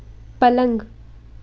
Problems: constant background noise